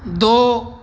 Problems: none marked